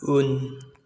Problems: constant background noise